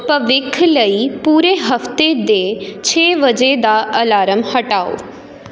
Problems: none marked